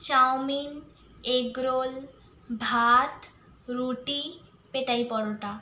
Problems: constant background noise